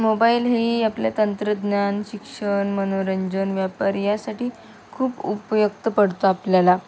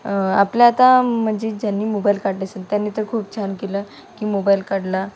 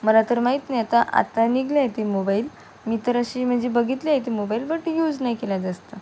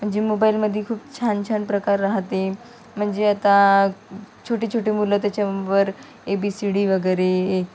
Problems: none marked